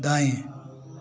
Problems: constant background noise